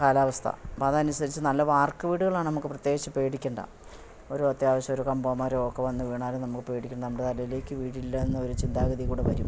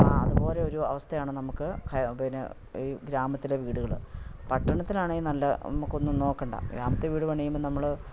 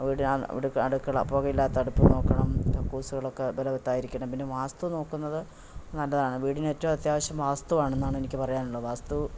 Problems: none marked